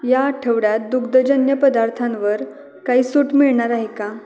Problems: continuous background conversations